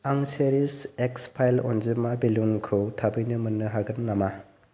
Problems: constant background noise